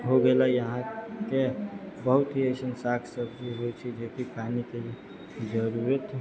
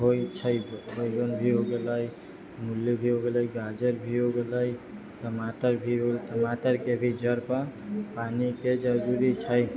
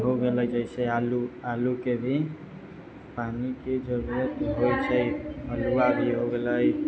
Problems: low volume